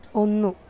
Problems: constant background noise